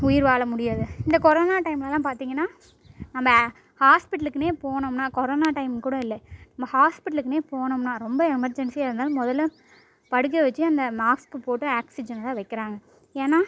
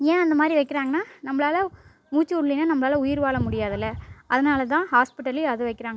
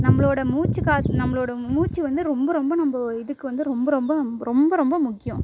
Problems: background sounds at intervals, low volume